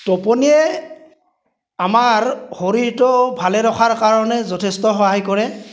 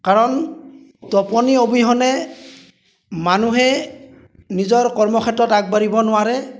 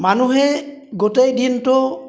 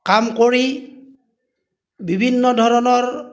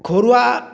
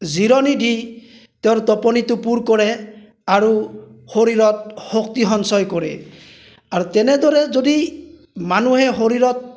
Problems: none marked